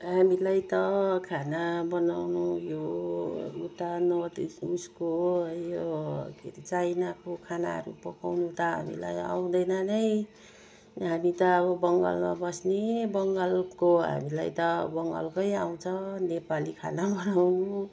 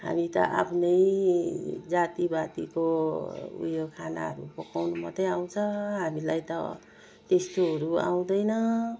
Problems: low volume